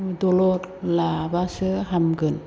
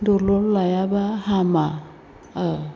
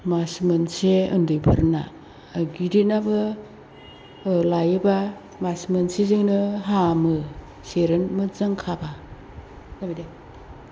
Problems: constant background noise